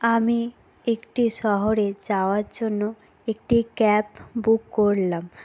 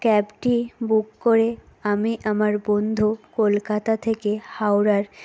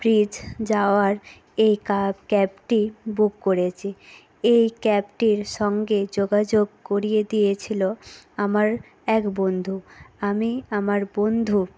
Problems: none marked